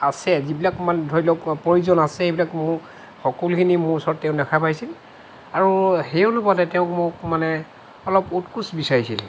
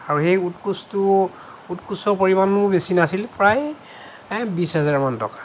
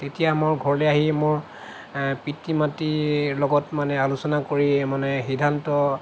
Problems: none marked